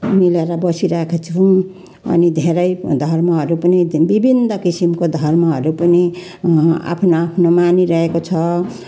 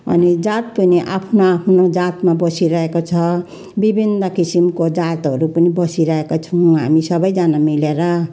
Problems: constant background noise